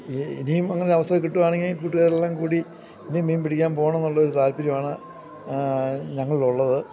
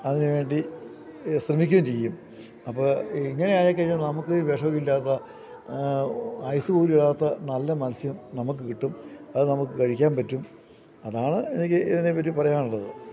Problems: low volume